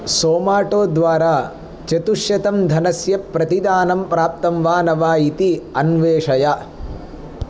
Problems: none marked